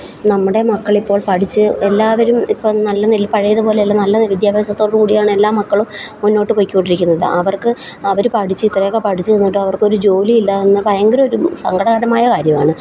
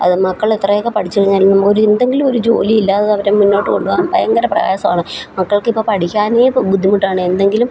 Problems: constant background noise